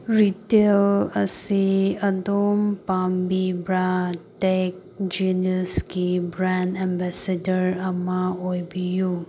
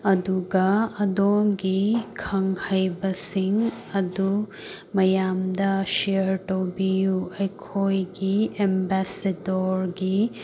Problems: constant background noise